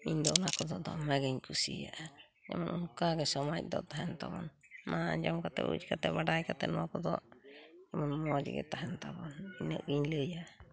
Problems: background sounds at intervals